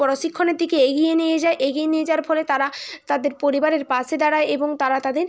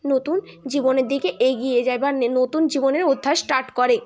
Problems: constant background noise, continuous background conversations